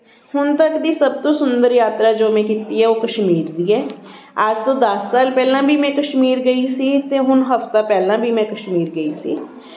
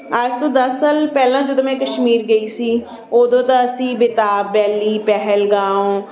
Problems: continuous background conversations